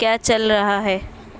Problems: none marked